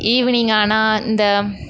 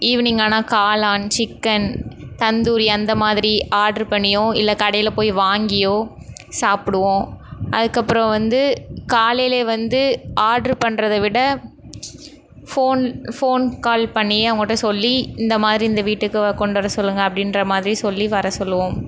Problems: none marked